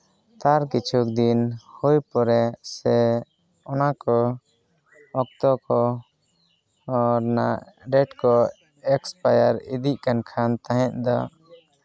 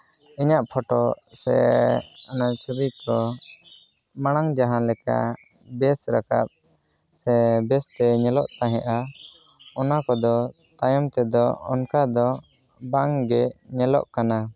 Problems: background conversations at intervals